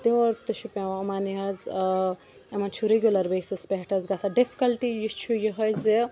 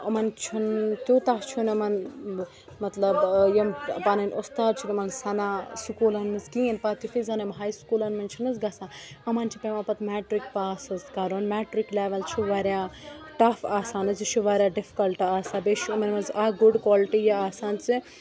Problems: background sounds at intervals, continuous background conversations